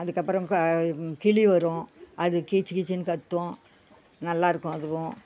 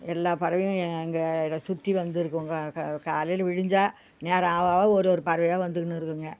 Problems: background sounds at intervals